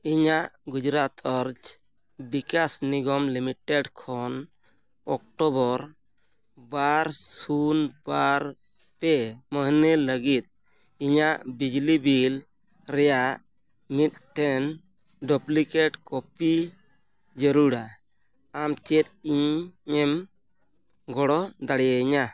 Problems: none marked